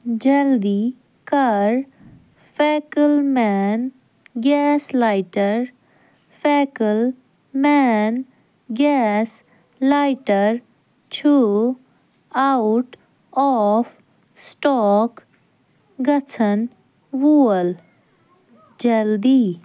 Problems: none marked